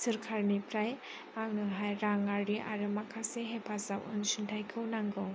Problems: none marked